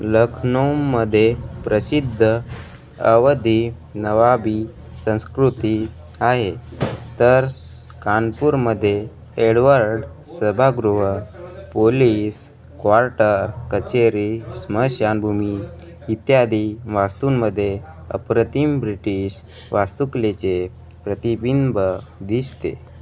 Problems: constant background noise, continuous background conversations